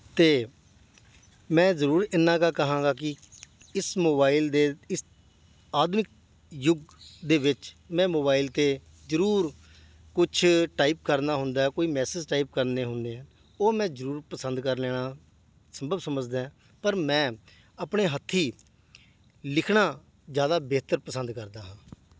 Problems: none marked